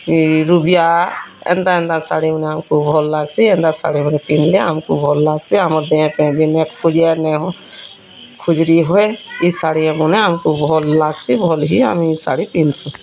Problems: constant background noise, continuous background conversations